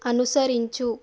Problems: constant background noise